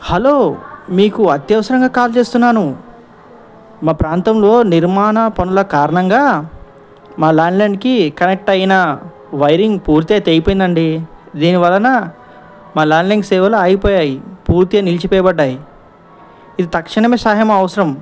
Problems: background conversations at intervals